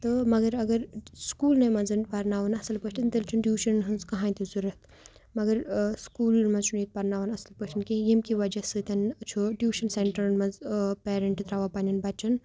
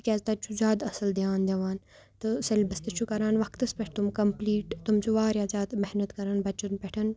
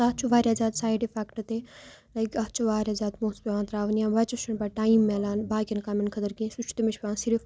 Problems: none marked